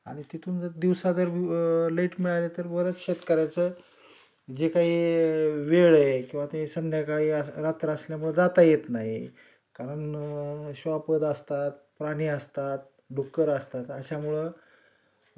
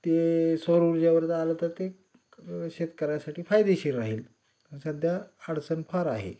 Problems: none marked